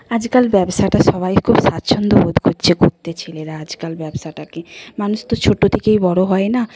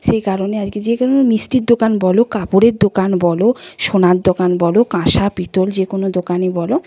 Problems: constant background noise, background conversations at intervals